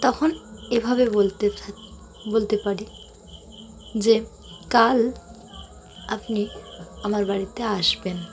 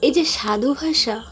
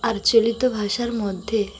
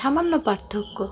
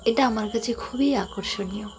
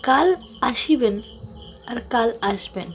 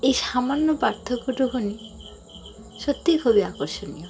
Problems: constant background noise, continuous background conversations